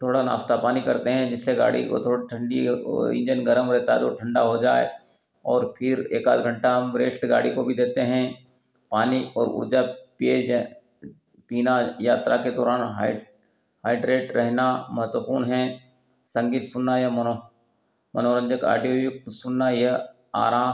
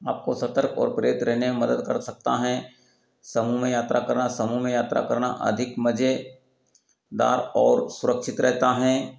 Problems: none marked